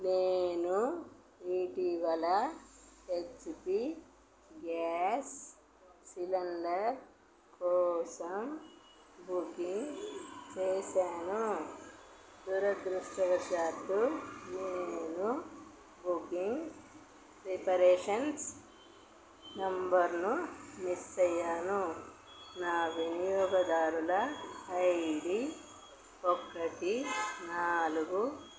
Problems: constant background noise, low volume